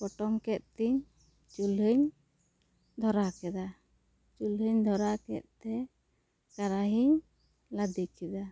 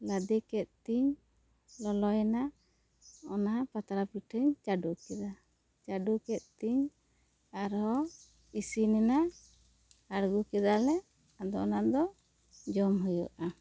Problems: none marked